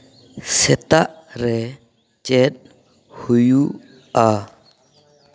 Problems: background conversations at intervals